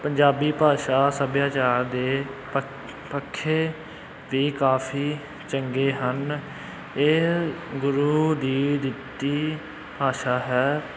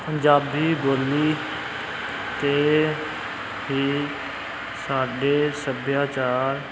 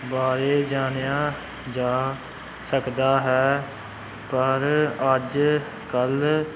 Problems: constant background noise